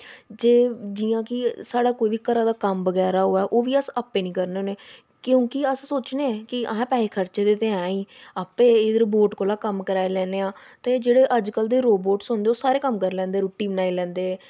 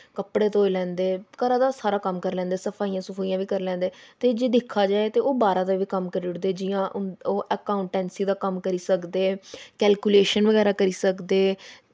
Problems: background sounds at intervals